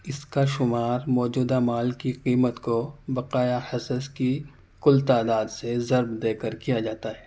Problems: none marked